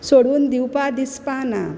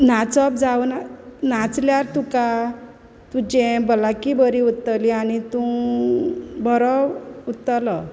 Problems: constant background noise